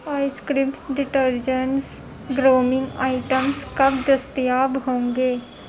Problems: constant background noise